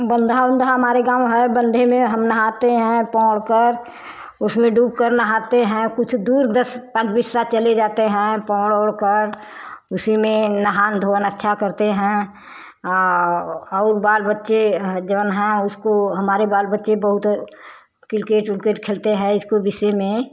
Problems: constant background noise